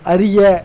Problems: background sounds at intervals